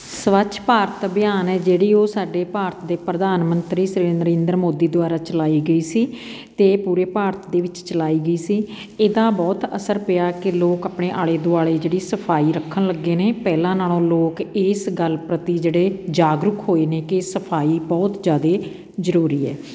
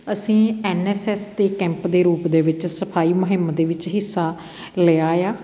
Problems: none marked